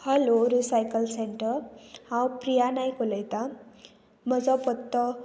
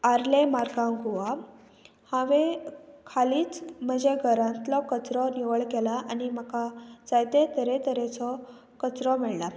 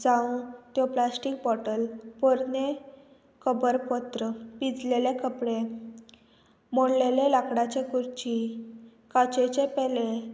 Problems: constant background noise